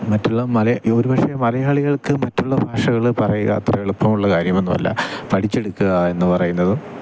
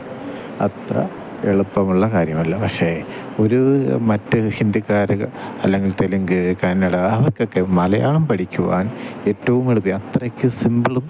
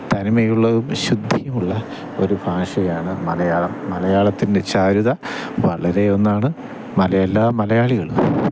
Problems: constant background noise